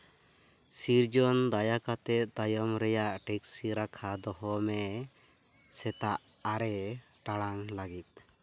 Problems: constant background noise